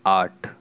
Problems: constant background noise